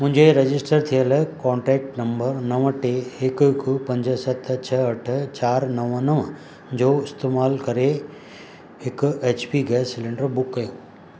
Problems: constant background noise